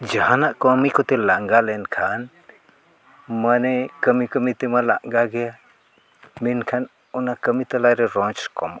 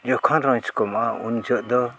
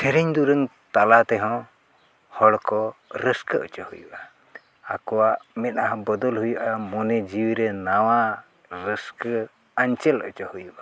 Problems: constant background noise, background conversations at intervals